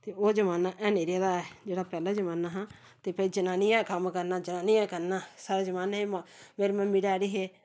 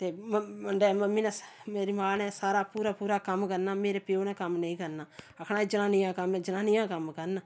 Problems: none marked